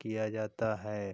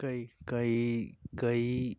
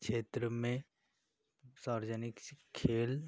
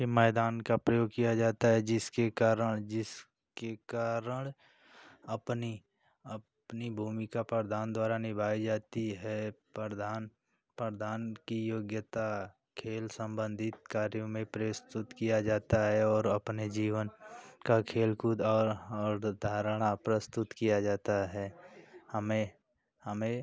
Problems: none marked